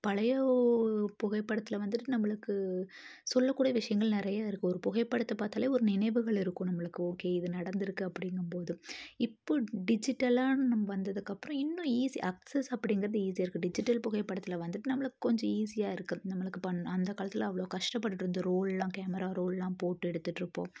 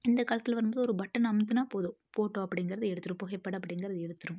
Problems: none marked